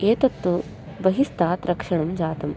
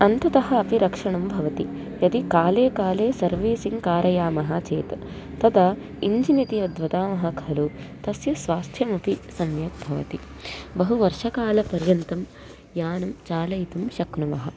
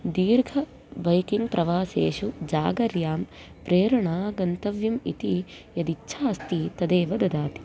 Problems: constant background noise